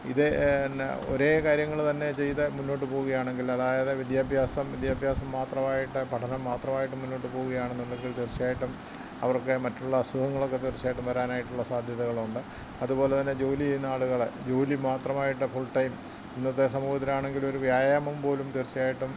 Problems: constant background noise, low volume